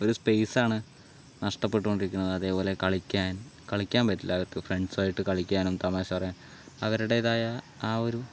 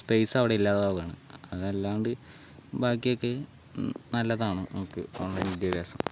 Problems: constant background noise